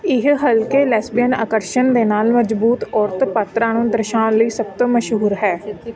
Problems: continuous background conversations